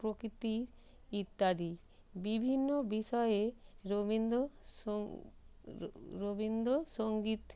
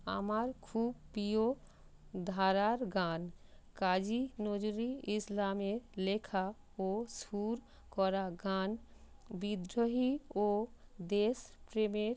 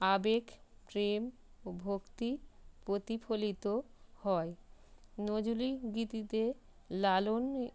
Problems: constant background noise